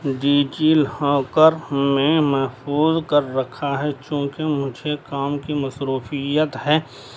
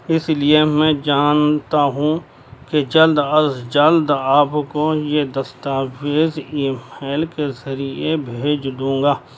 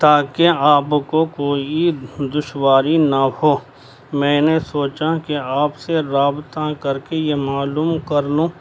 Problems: constant background noise